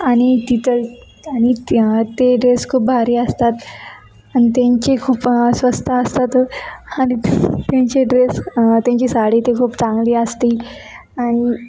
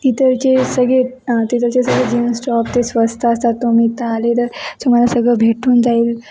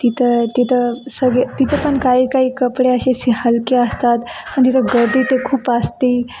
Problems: constant background noise, background conversations at intervals